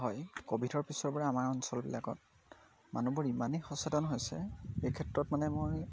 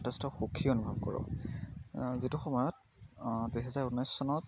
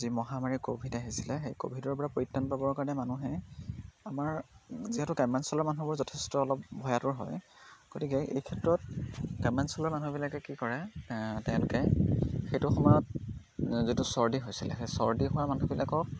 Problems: none marked